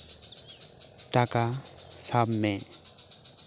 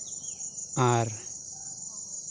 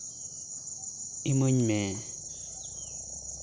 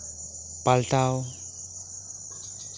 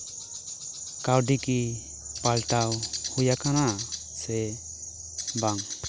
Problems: background sounds at intervals, background conversations at intervals